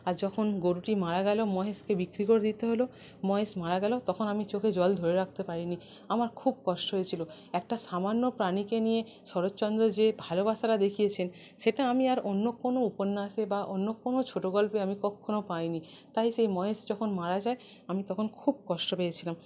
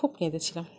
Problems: none marked